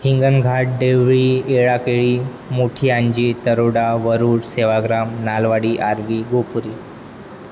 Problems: constant background noise